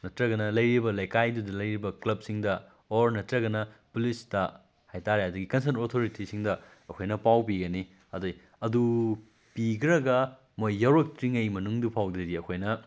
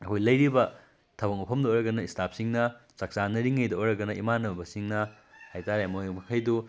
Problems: background sounds at intervals